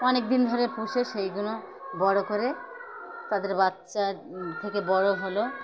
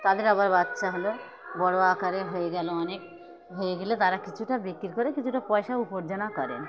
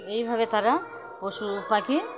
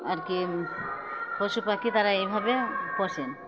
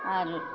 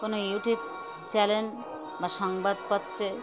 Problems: constant background noise, continuous background conversations